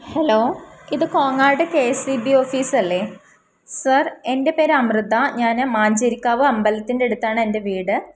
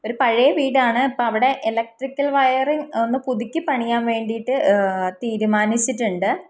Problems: none marked